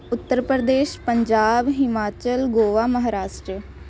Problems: none marked